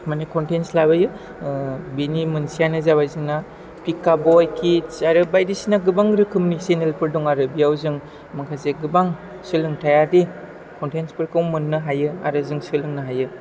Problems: low volume